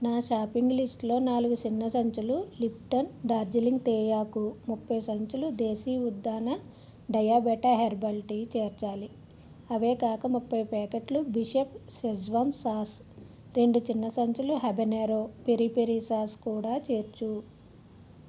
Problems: none marked